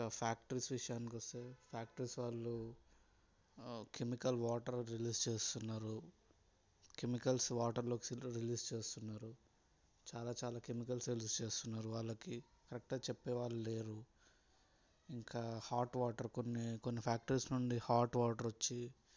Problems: background sounds at intervals, low volume